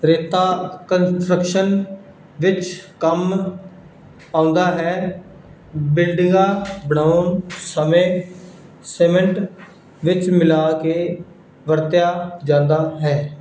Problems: background sounds at intervals